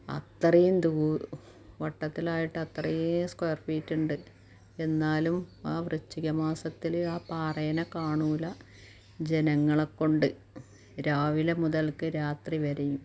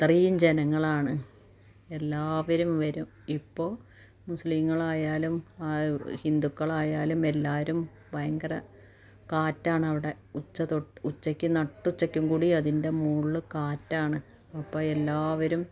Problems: low volume